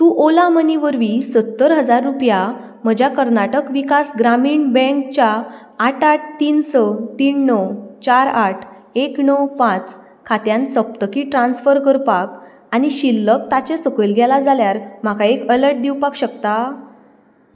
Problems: background sounds at intervals